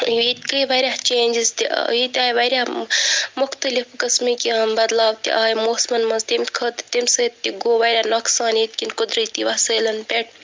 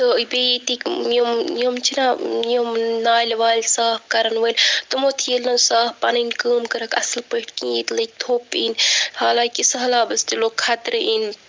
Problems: none marked